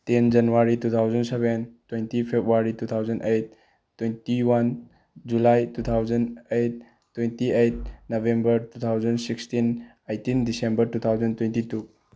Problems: none marked